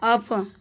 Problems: constant background noise